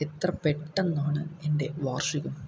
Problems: low volume